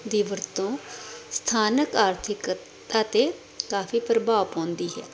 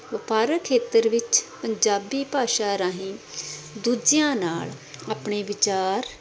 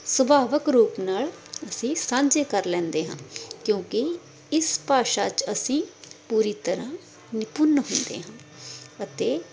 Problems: constant background noise